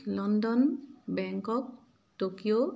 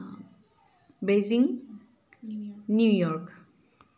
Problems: constant background noise